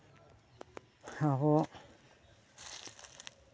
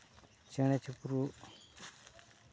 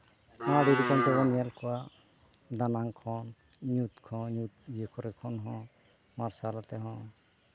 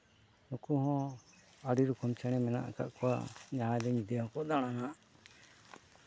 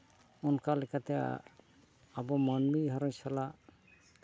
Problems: none marked